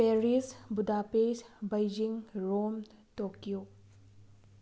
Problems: background sounds at intervals